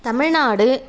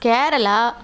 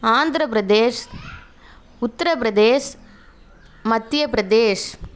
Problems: none marked